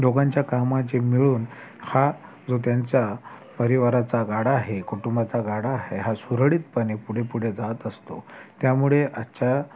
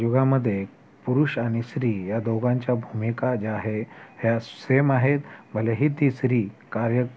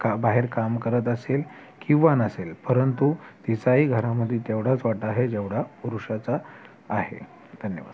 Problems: constant background noise, continuous background conversations